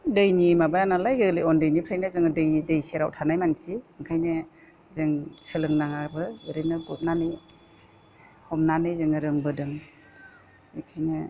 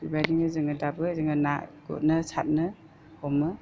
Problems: constant background noise